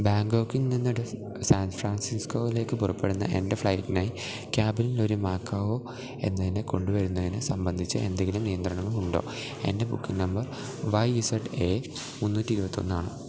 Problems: constant background noise